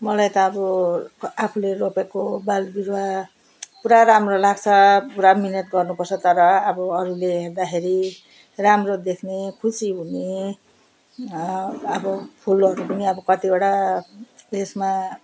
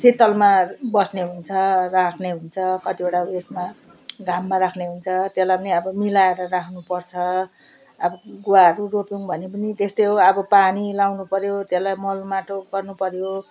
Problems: none marked